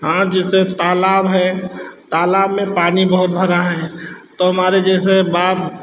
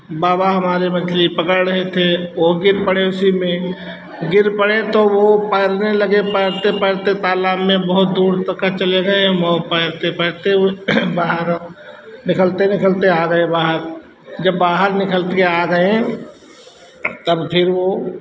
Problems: constant background noise